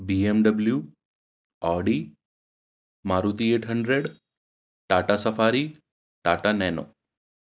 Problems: background sounds at intervals